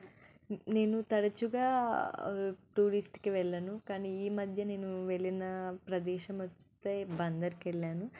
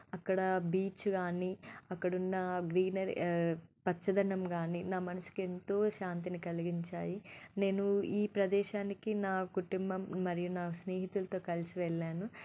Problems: none marked